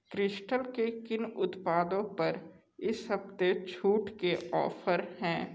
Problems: echo